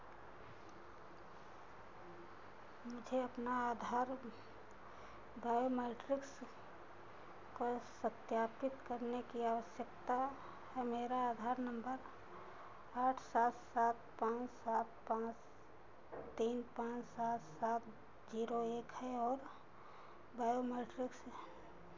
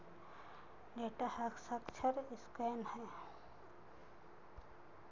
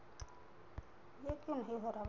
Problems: constant background noise